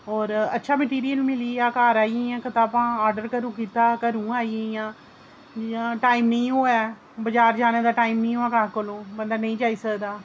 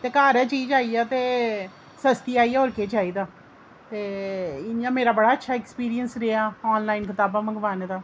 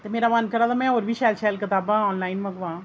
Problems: none marked